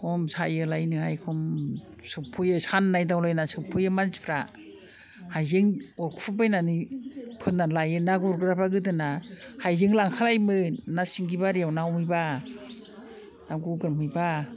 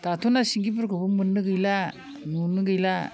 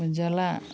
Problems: constant background noise